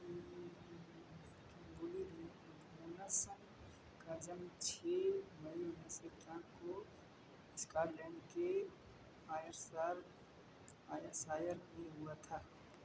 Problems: constant background noise